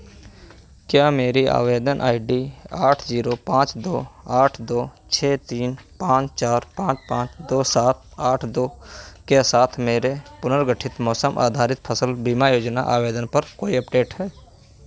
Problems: none marked